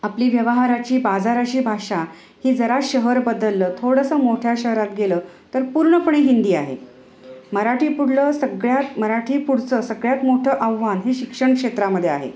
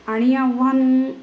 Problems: background sounds at intervals